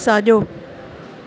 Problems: constant background noise